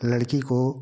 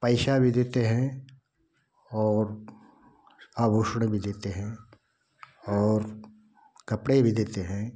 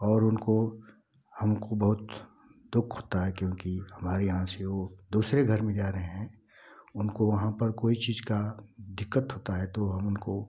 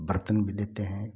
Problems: constant background noise